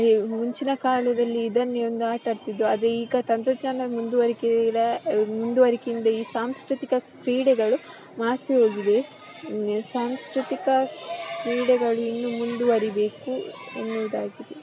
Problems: constant background noise